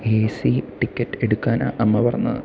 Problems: background sounds at intervals